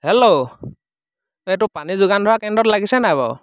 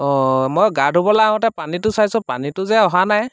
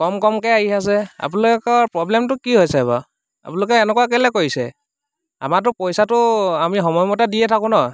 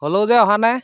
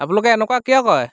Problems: background sounds at intervals